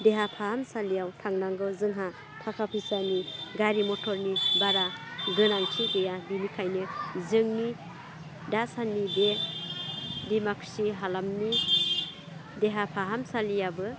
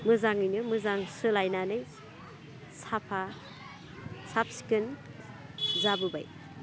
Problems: low volume